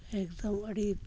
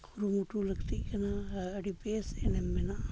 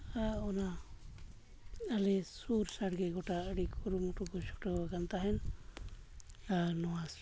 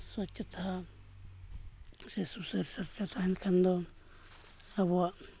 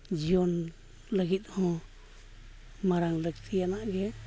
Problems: background sounds at intervals, low volume